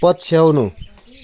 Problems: constant background noise